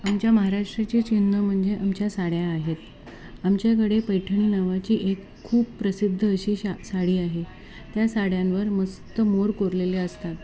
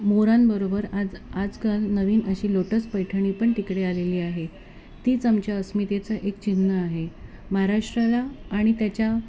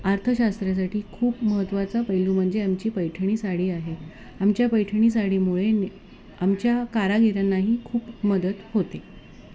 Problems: none marked